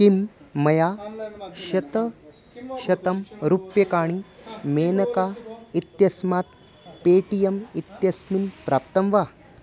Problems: constant background noise, background conversations at intervals